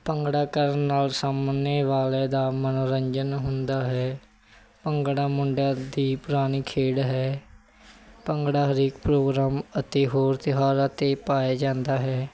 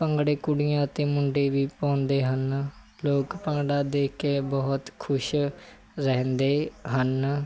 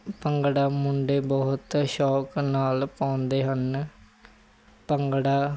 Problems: background sounds at intervals